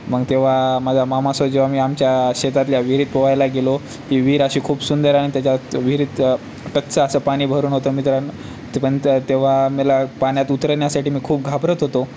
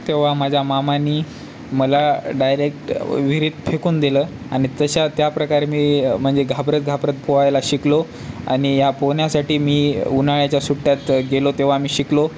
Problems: none marked